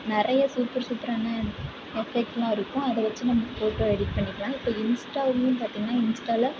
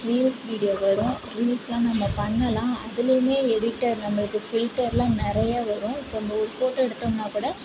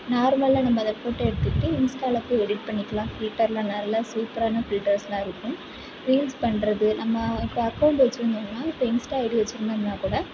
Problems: background sounds at intervals, background conversations at intervals, low volume